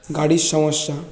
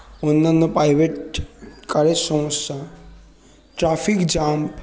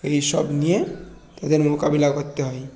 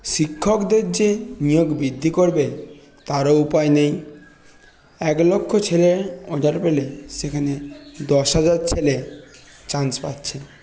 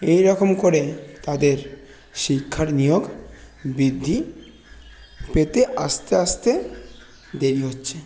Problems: none marked